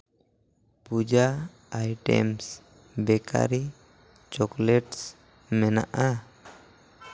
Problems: none marked